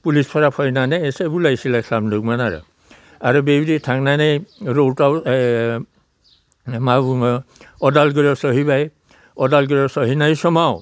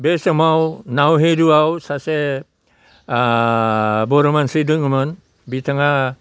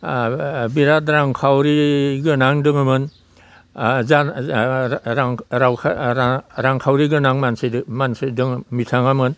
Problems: constant background noise, low volume